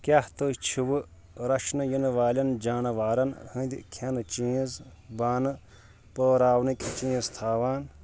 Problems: constant background noise